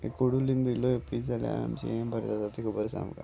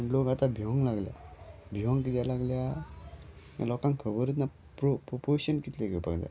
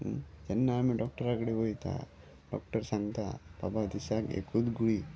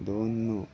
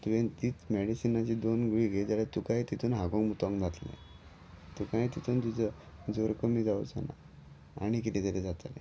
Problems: none marked